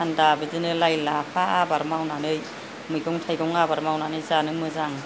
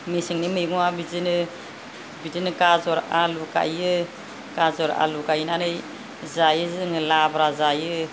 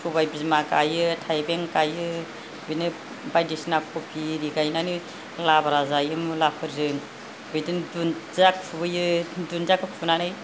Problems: none marked